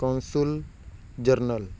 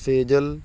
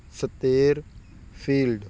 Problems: none marked